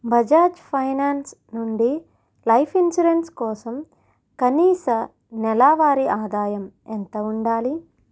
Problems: none marked